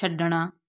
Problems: background conversations at intervals